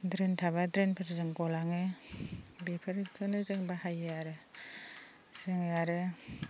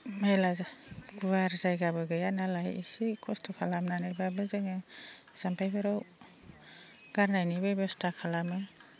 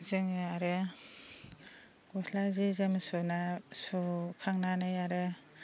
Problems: constant background noise